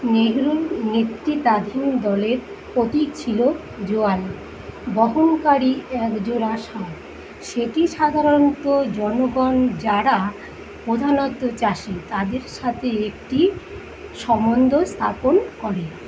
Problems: constant background noise